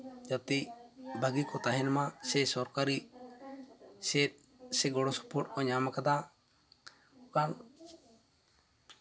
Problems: constant background noise, background conversations at intervals